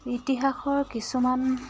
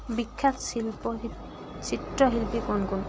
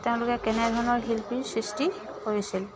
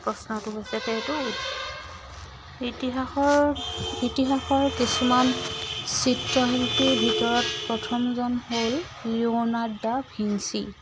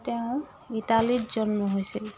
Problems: constant background noise